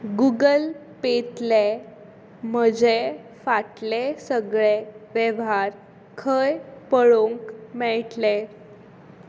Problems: background sounds at intervals